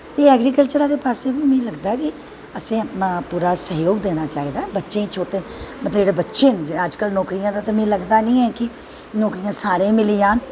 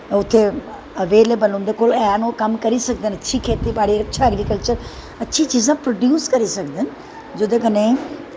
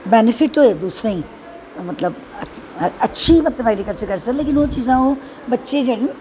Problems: constant background noise